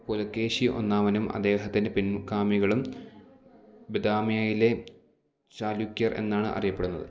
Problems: none marked